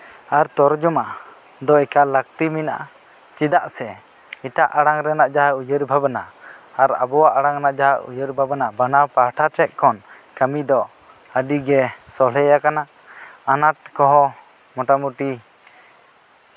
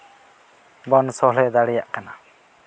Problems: constant background noise